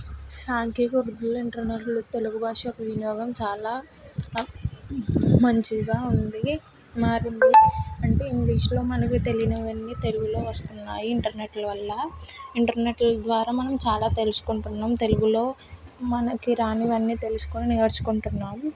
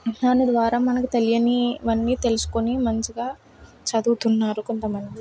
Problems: background sounds at intervals